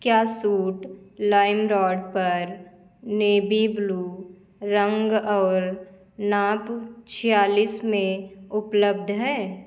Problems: none marked